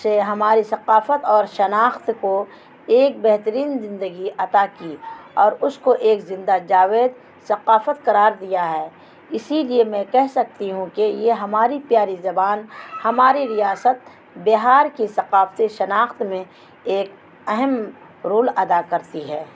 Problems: constant background noise